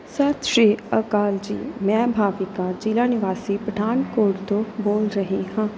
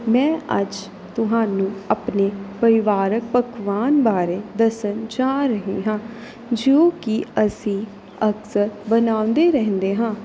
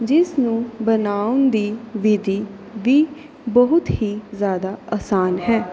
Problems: none marked